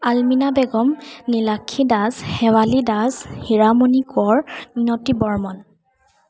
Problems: constant background noise, background conversations at intervals